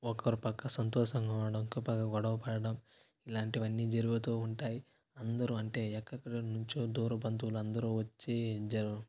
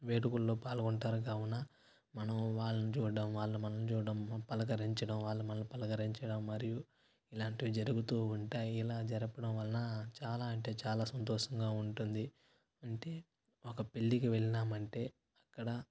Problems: constant background noise